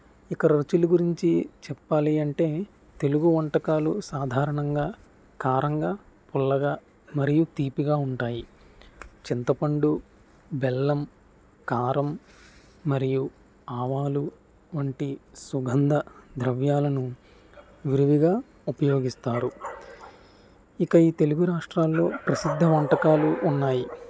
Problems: none marked